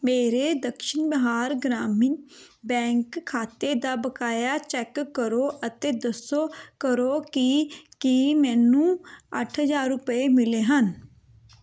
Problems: background sounds at intervals